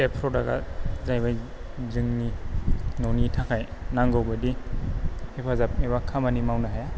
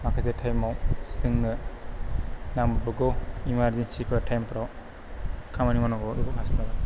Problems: low volume